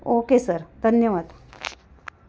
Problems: constant background noise